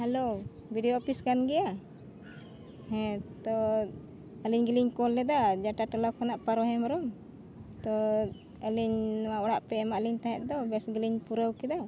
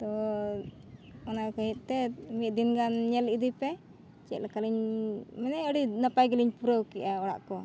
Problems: none marked